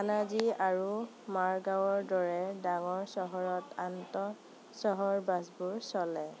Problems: constant background noise